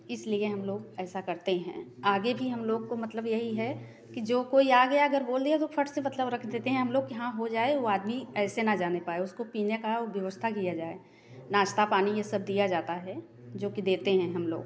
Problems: background conversations at intervals